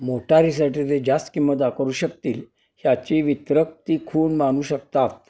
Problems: none marked